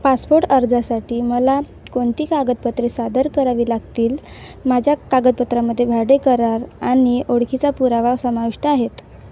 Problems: none marked